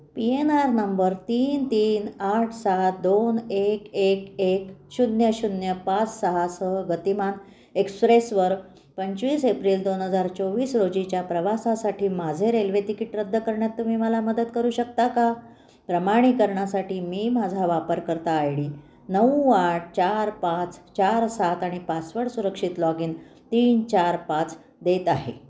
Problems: constant background noise, continuous background conversations